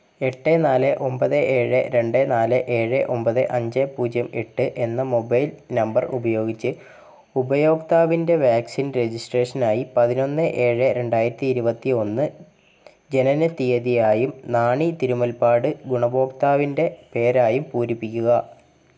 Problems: background sounds at intervals, low volume